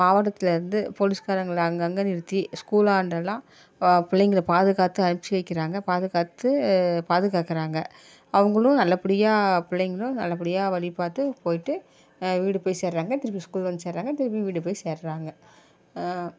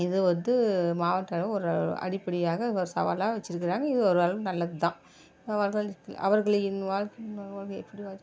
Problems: none marked